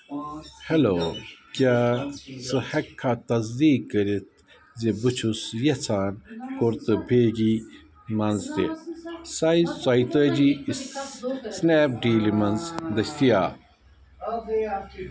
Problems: constant background noise, continuous background conversations